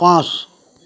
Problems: none marked